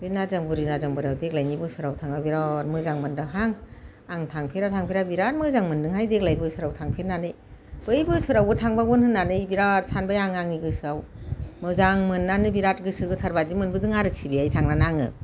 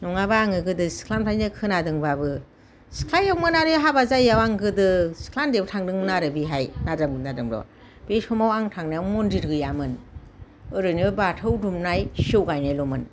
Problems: none marked